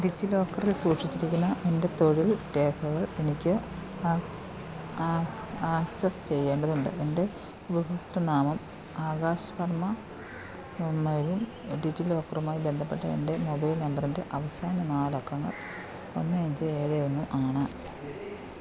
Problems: constant background noise, low volume